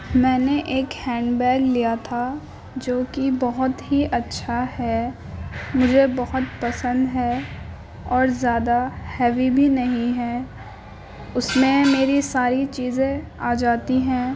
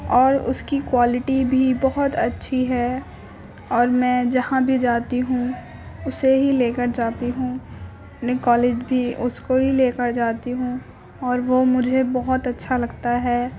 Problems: constant background noise